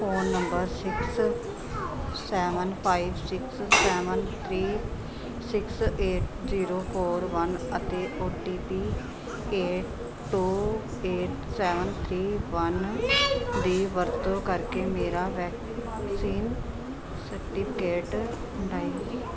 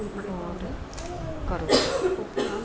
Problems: continuous background conversations